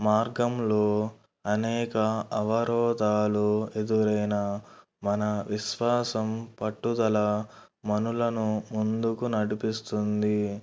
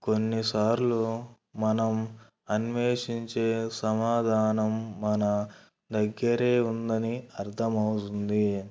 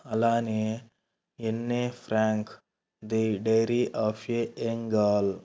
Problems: none marked